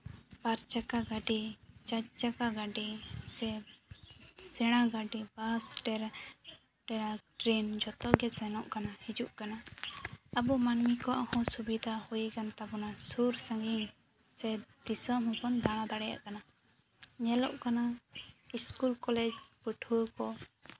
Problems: background sounds at intervals